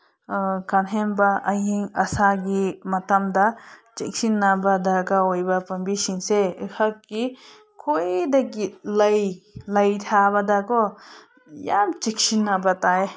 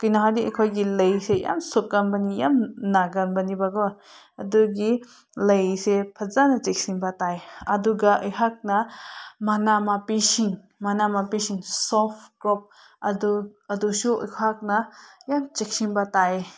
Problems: none marked